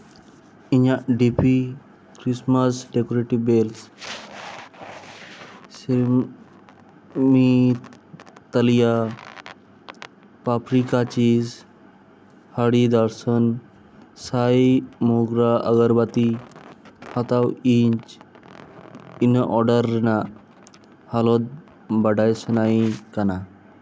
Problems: background sounds at intervals, echo